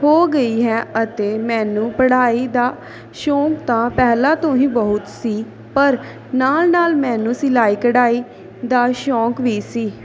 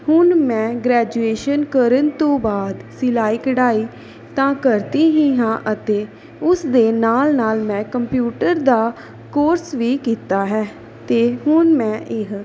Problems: continuous background conversations